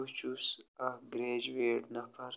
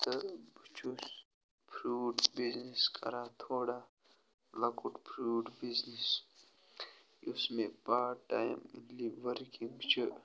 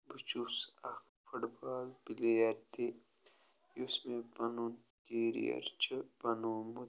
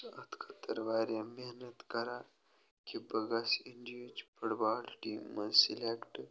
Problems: background sounds at intervals